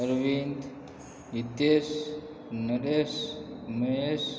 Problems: background conversations at intervals